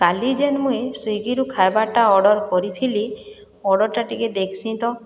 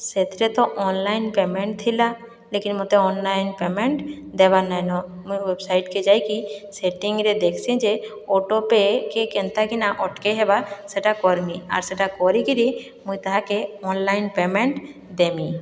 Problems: none marked